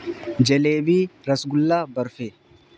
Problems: constant background noise